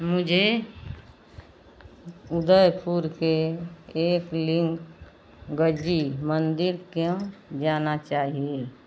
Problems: none marked